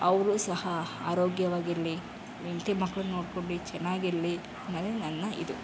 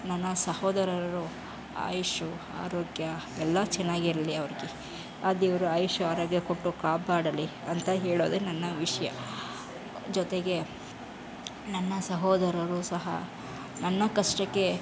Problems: background sounds at intervals